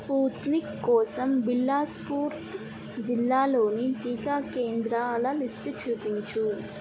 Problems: constant background noise, low volume